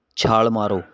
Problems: constant background noise